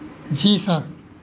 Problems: constant background noise